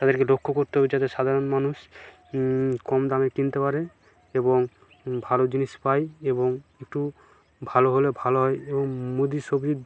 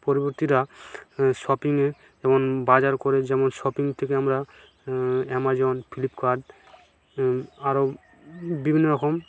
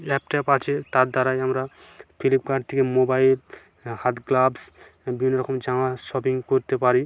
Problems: constant background noise